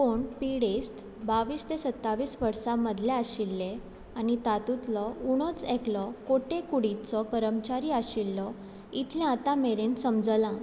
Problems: constant background noise